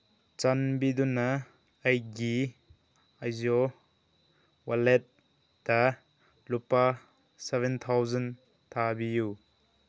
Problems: none marked